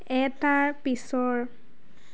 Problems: none marked